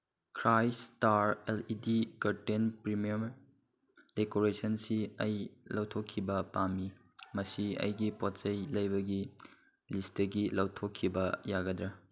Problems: none marked